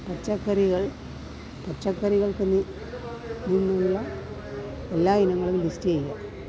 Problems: continuous background conversations, low volume